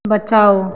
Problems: none marked